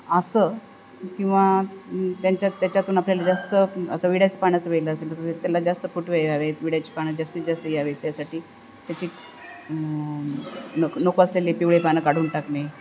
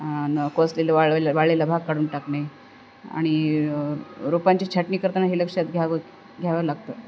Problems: none marked